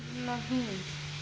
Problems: constant background noise, low volume